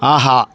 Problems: constant background noise